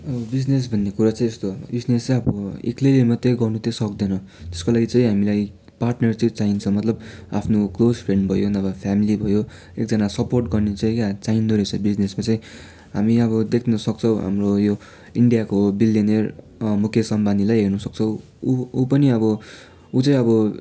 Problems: background sounds at intervals